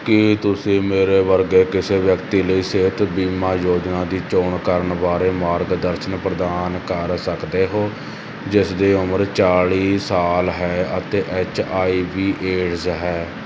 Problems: constant background noise